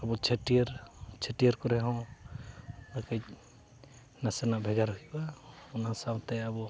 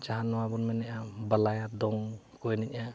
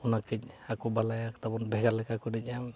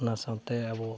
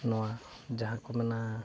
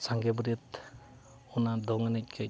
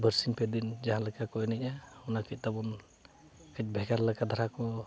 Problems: background sounds at intervals, continuous background conversations